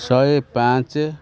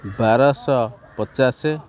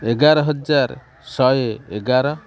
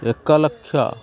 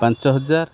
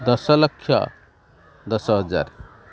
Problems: constant background noise, continuous background conversations